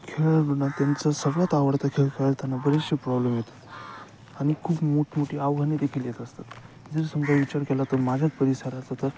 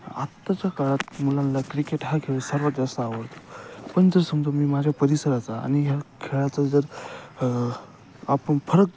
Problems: constant background noise